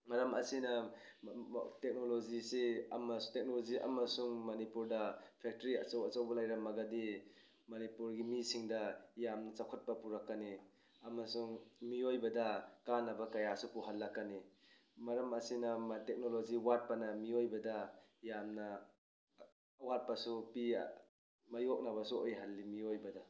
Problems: none marked